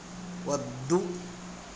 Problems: constant background noise